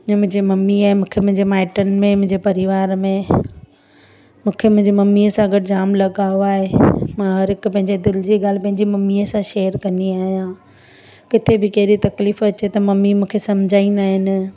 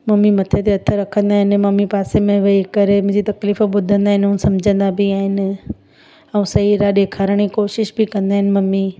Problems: constant background noise